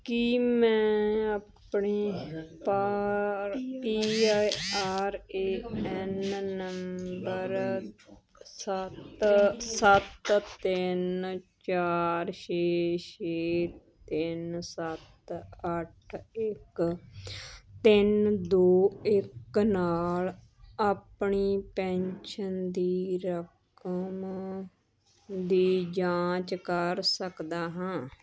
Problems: background sounds at intervals, continuous background conversations